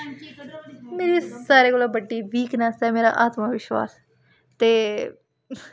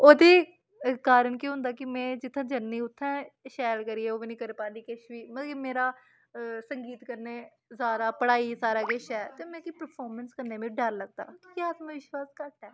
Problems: constant background noise